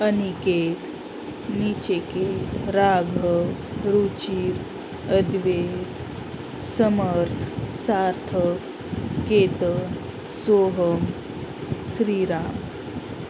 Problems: constant background noise, background conversations at intervals